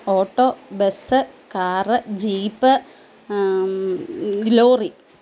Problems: none marked